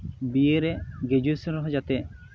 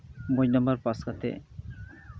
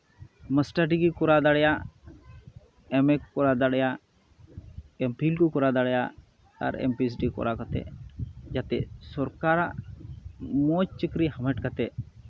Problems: constant background noise